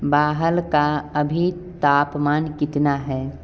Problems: background sounds at intervals